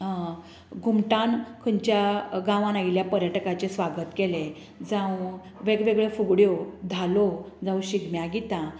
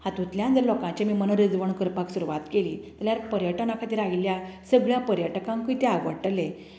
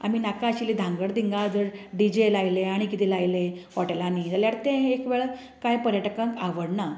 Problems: none marked